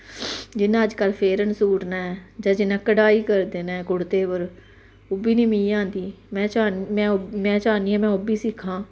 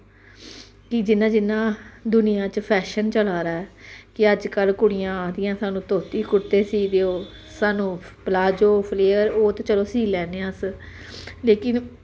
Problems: constant background noise